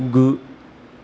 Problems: constant background noise